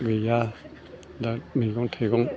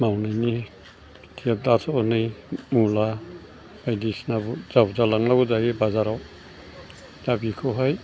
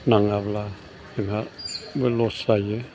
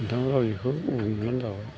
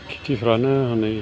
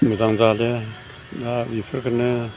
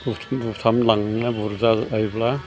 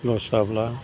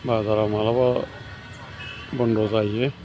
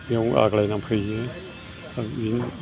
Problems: constant background noise